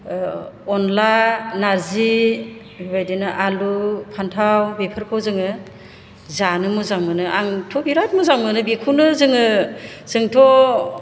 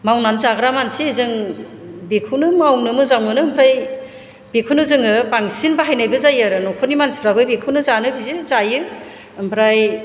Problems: low volume